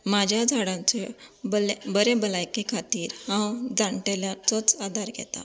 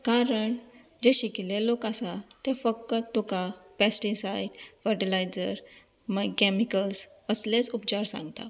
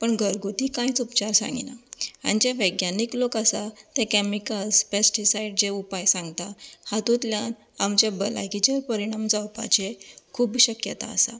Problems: constant background noise